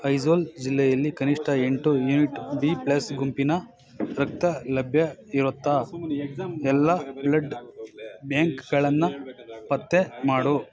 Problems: continuous background conversations